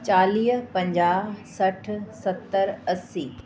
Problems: constant background noise